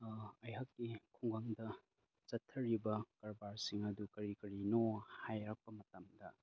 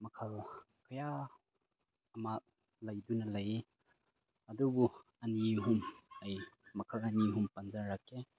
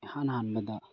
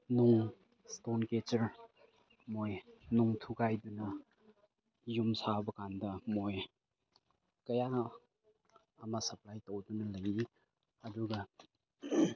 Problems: low volume